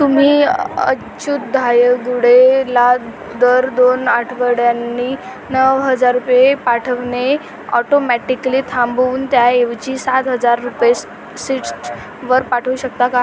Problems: constant background noise, background conversations at intervals